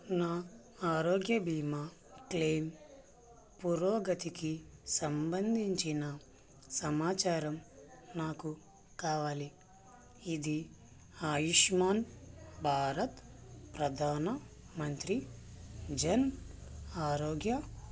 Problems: constant background noise, low volume